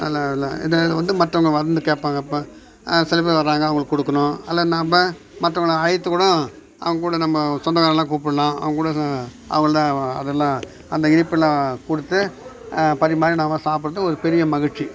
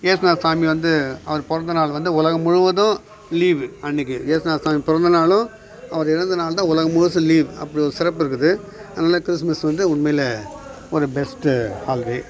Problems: background sounds at intervals, background conversations at intervals